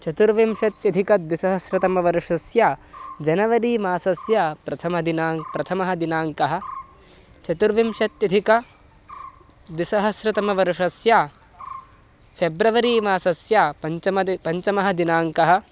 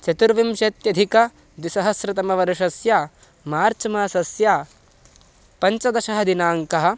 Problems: constant background noise